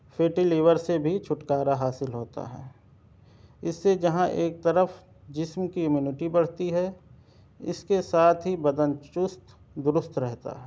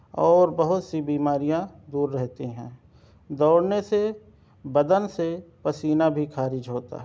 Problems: none marked